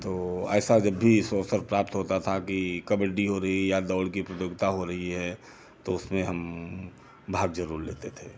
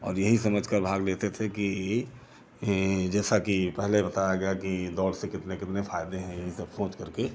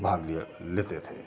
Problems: none marked